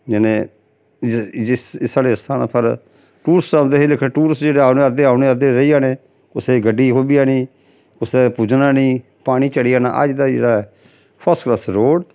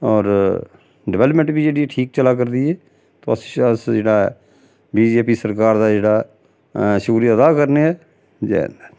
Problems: background sounds at intervals